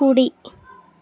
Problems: continuous background conversations